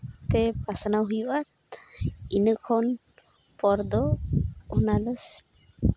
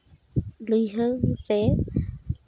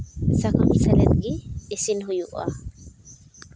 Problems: background sounds at intervals